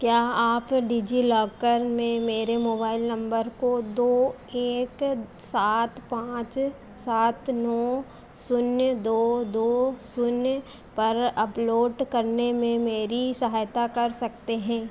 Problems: constant background noise